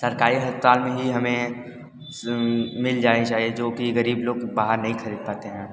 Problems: constant background noise